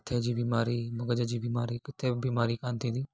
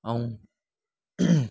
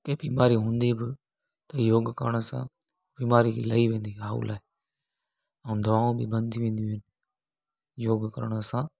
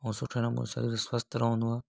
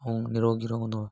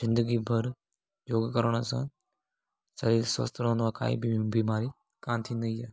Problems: none marked